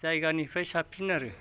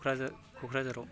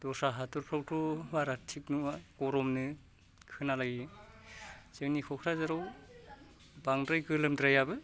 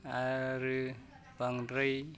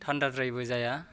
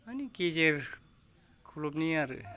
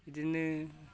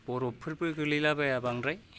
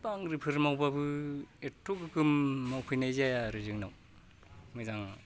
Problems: low volume